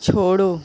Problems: none marked